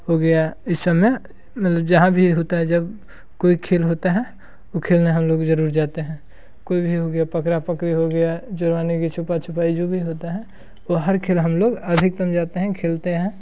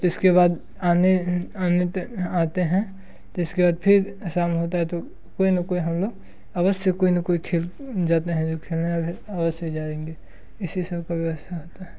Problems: constant background noise